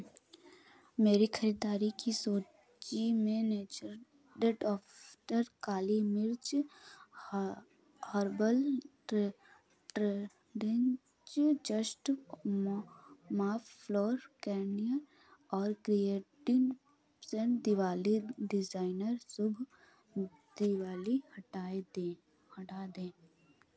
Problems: low volume